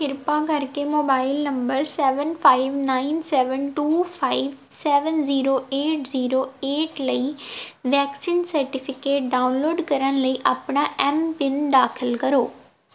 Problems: background sounds at intervals